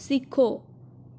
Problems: none marked